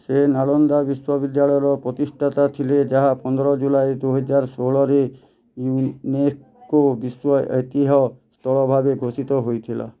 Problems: none marked